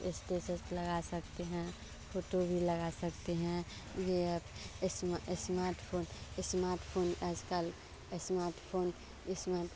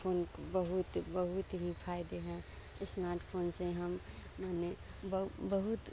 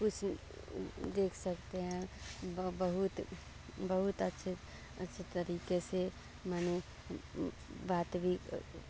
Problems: constant background noise